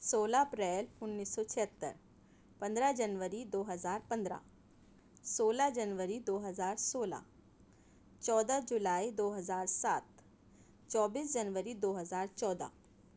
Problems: none marked